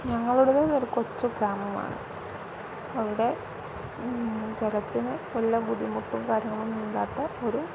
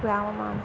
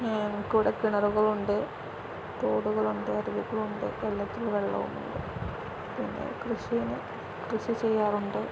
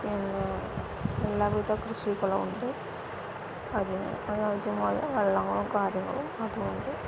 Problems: constant background noise